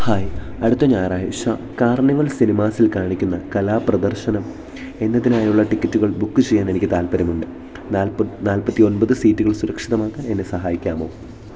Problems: background sounds at intervals